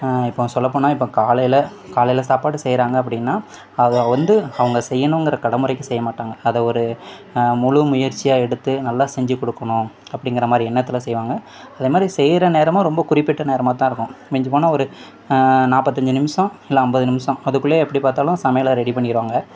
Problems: background conversations at intervals